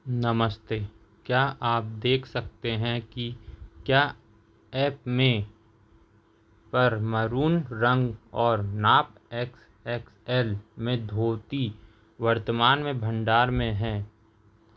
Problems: none marked